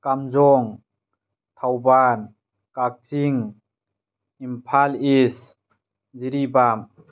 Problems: none marked